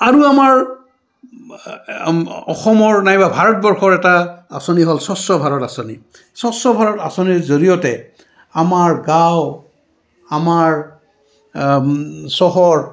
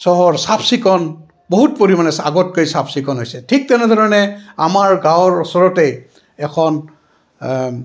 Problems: background sounds at intervals